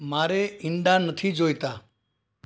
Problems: background sounds at intervals